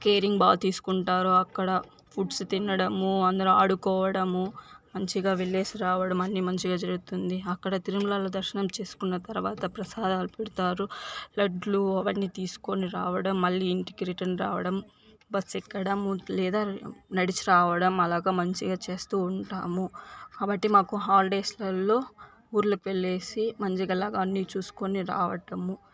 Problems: none marked